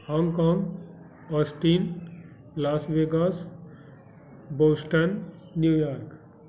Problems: constant background noise